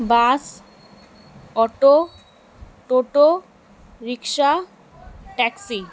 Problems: background sounds at intervals